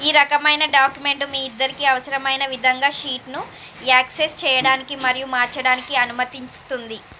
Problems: constant background noise